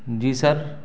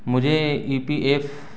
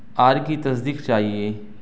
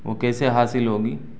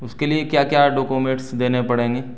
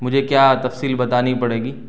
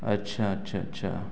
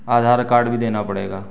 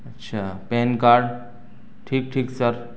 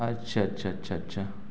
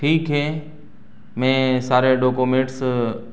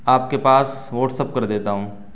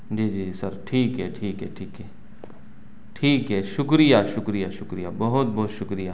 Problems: none marked